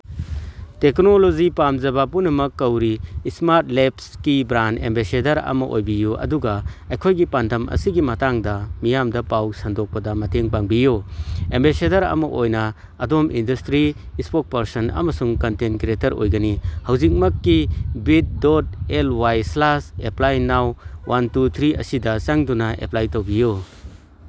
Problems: background sounds at intervals